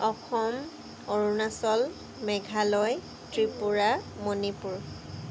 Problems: constant background noise